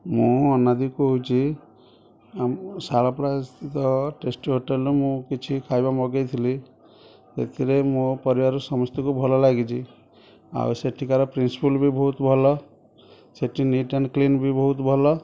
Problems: background conversations at intervals